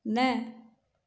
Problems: none marked